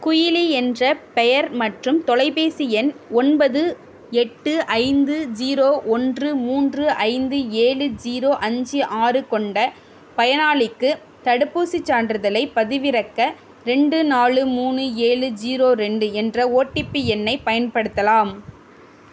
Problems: none marked